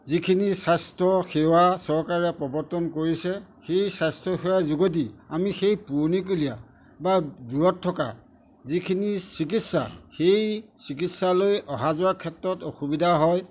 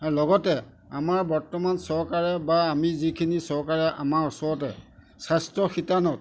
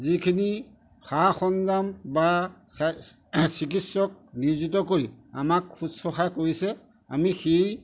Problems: none marked